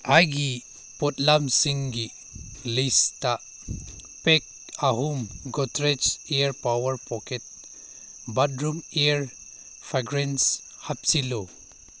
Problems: none marked